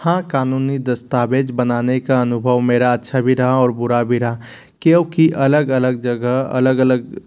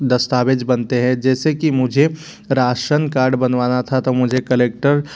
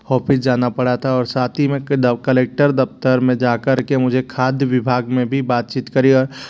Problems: constant background noise